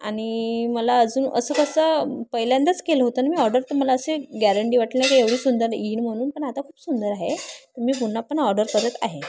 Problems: constant background noise